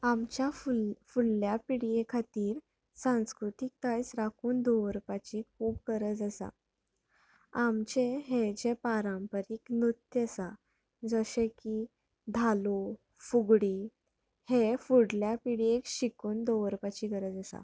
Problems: background sounds at intervals